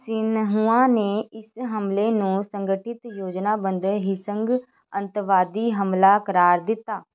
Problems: constant background noise